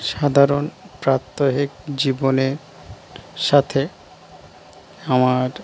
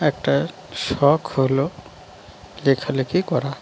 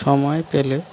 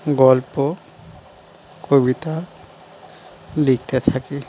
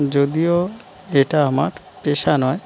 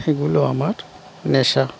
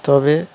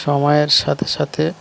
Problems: constant background noise